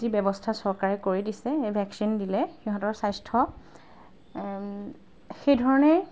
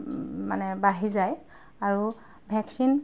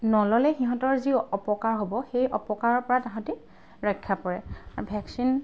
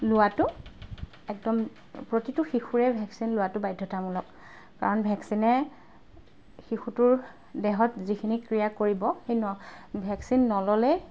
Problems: background sounds at intervals